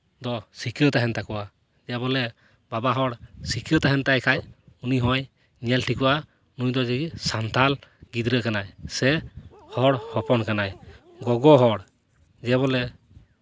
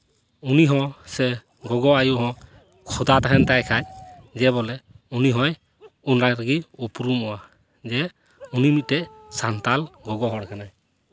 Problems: none marked